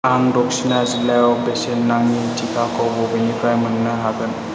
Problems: constant background noise